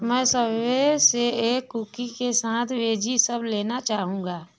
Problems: none marked